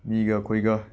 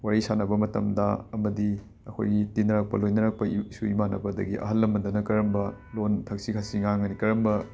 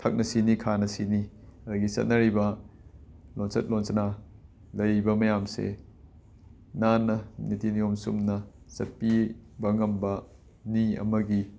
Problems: background sounds at intervals